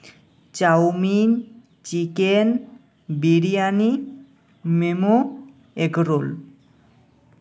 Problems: none marked